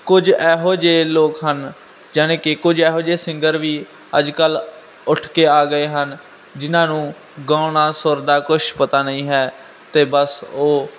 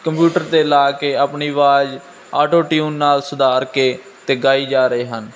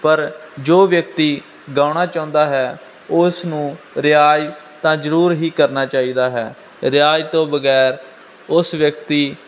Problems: constant background noise